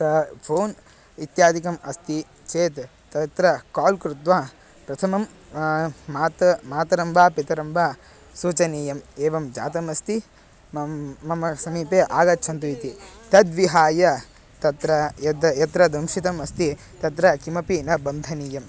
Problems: constant background noise, background conversations at intervals